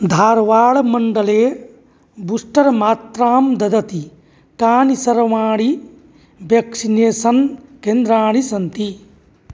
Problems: none marked